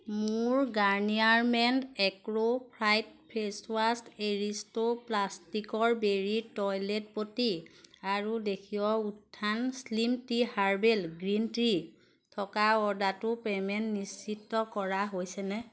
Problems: constant background noise